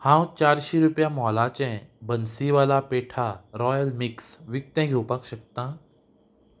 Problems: background sounds at intervals